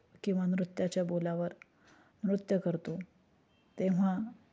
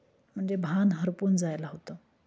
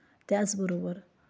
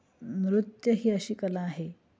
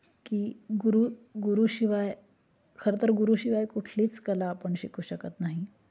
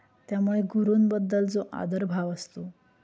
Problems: constant background noise, background conversations at intervals